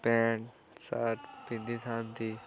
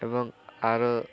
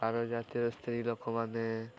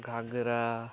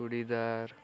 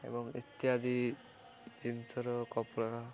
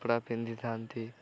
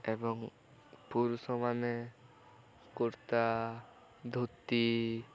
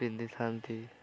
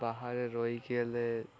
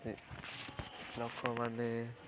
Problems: continuous background conversations